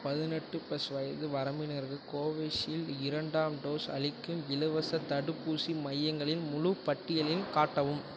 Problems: background sounds at intervals